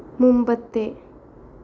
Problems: constant background noise